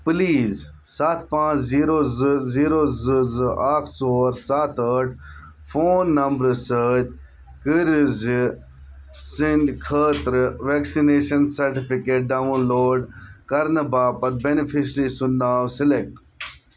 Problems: background sounds at intervals